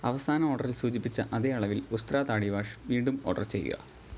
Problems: background sounds at intervals